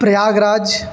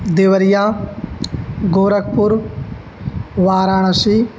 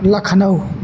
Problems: none marked